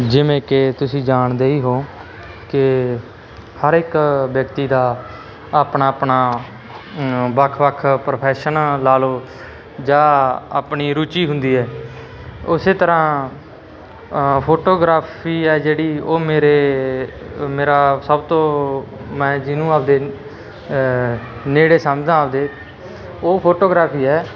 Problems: constant background noise, background conversations at intervals